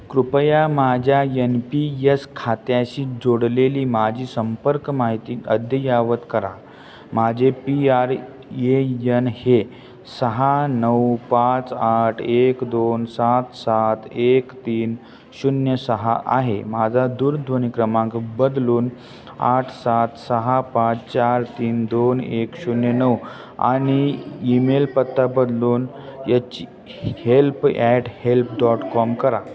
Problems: background sounds at intervals, background conversations at intervals